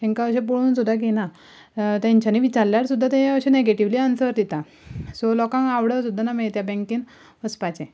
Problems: background sounds at intervals